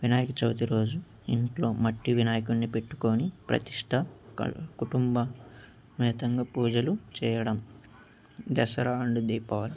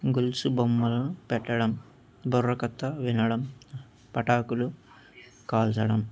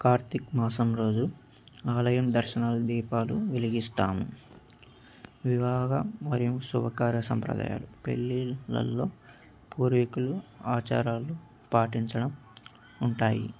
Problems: background sounds at intervals